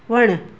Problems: constant background noise